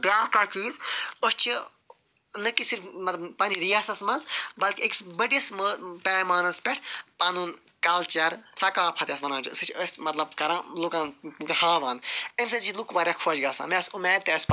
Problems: none marked